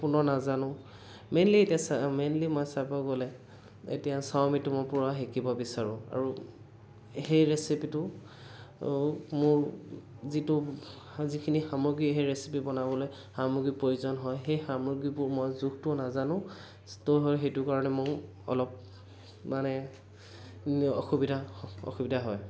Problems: background sounds at intervals